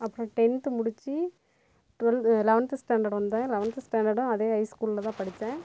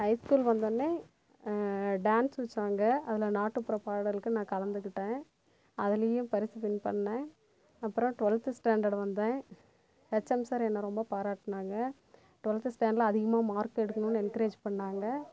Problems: constant background noise